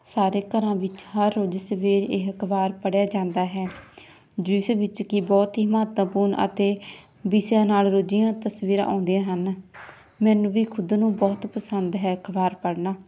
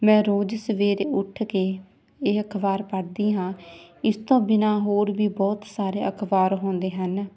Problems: none marked